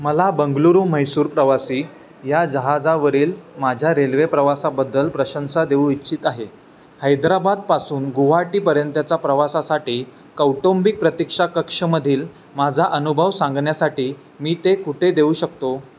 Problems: constant background noise, background conversations at intervals